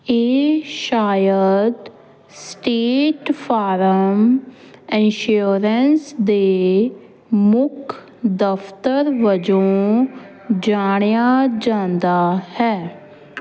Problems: constant background noise